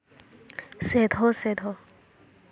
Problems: constant background noise